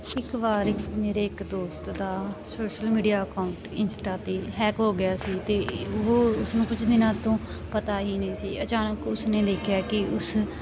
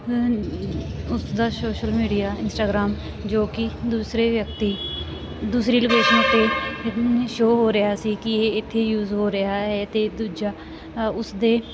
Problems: constant background noise